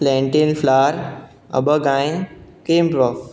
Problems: constant background noise